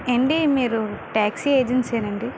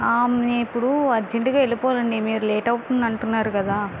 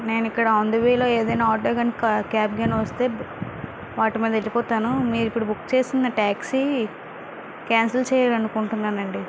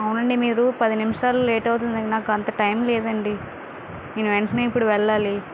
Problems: constant background noise